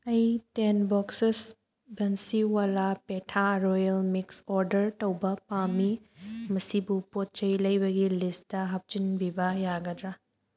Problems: background sounds at intervals